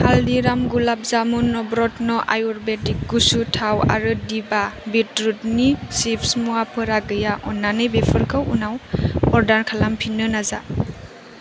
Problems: none marked